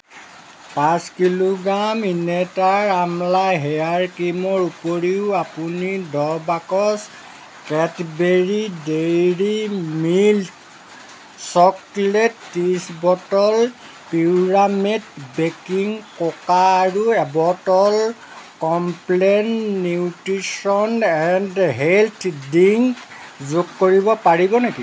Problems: constant background noise